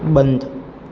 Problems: constant background noise